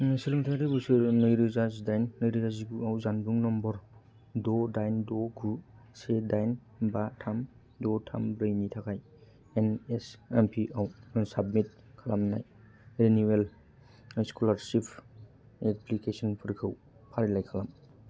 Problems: low volume